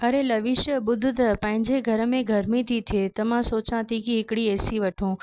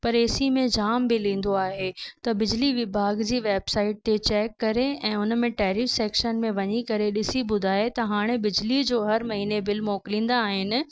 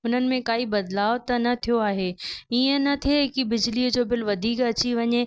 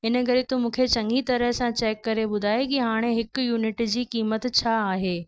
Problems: none marked